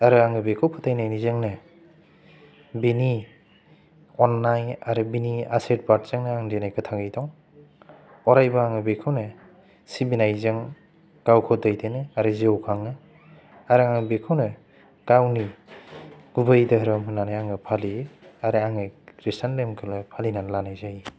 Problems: low volume